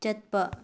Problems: low volume